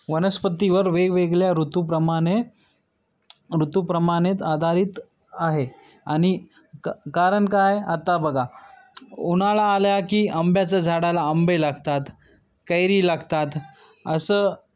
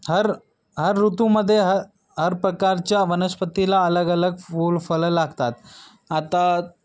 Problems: background sounds at intervals